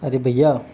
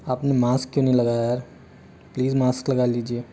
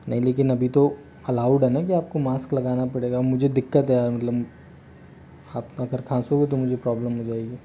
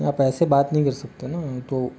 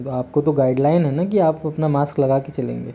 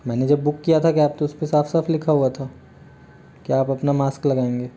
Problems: none marked